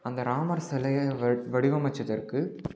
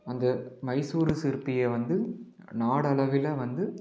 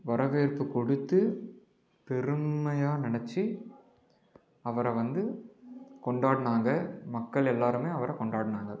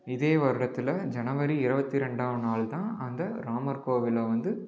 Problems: background sounds at intervals